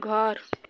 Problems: none marked